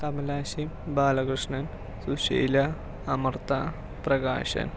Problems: low volume